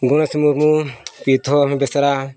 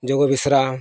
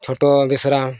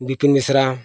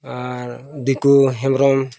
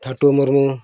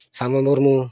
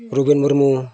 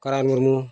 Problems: background sounds at intervals, background conversations at intervals